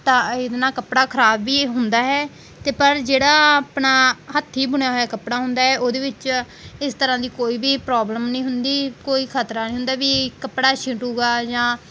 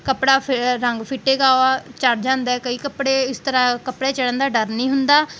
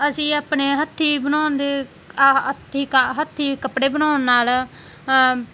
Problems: background sounds at intervals